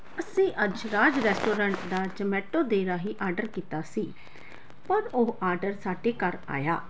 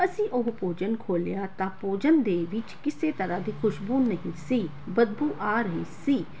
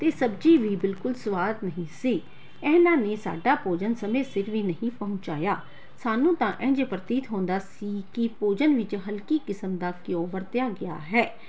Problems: background sounds at intervals